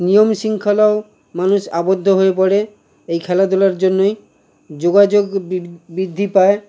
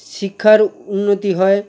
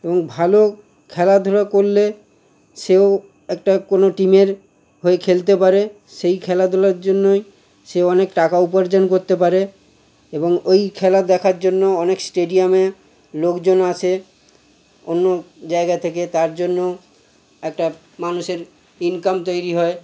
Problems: constant background noise